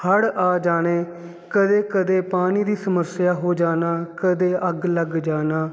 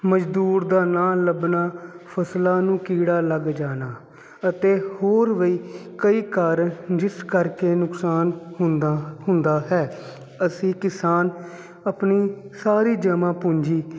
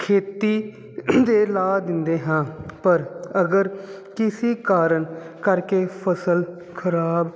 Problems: constant background noise